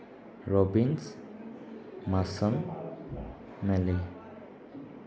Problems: background sounds at intervals